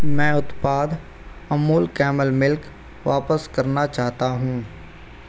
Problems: constant background noise